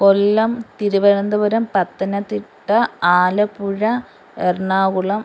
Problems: constant background noise